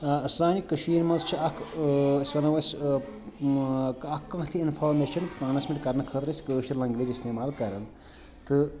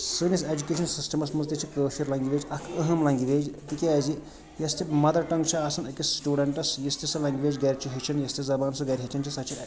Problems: constant background noise, background conversations at intervals